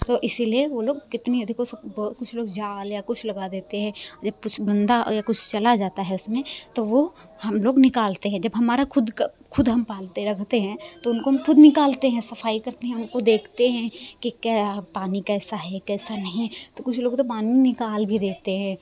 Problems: constant background noise